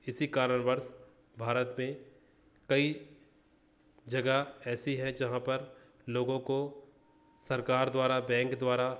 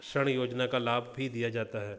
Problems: none marked